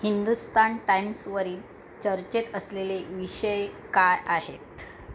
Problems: constant background noise